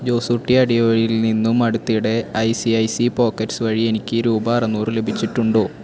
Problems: constant background noise